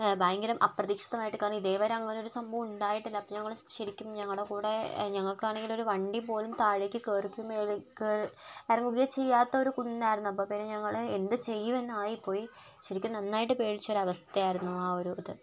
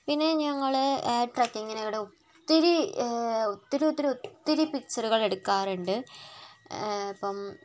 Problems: background sounds at intervals